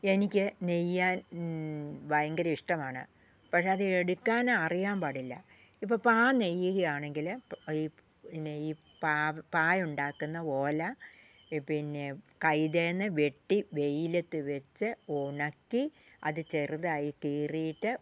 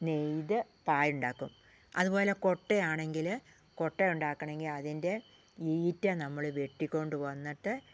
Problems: low volume